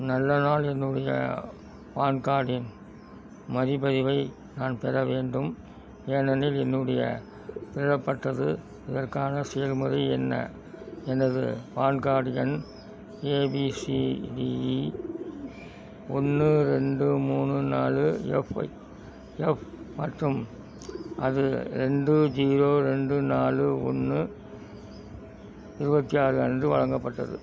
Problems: background sounds at intervals